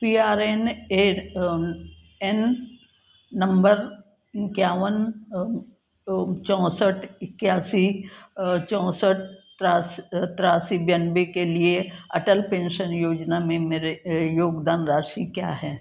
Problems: constant background noise